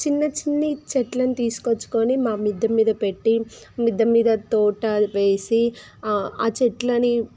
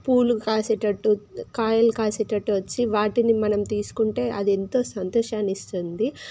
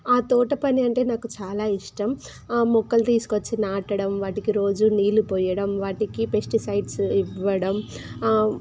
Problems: constant background noise